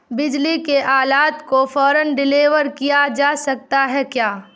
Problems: none marked